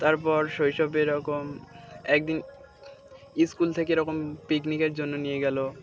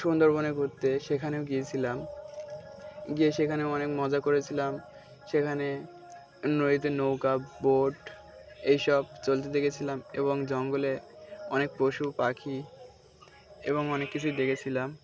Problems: background sounds at intervals, background conversations at intervals